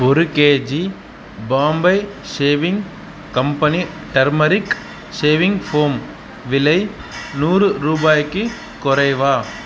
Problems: background sounds at intervals